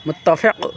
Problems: constant background noise